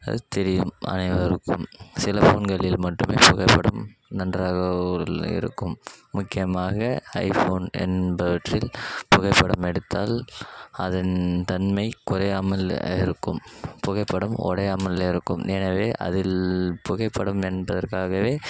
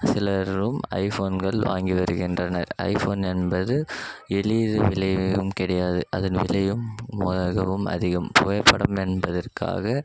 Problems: background sounds at intervals